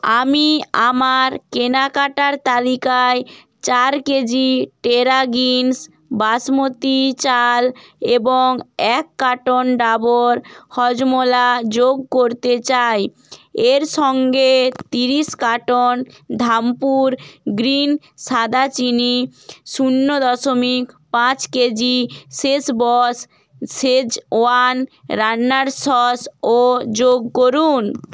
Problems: none marked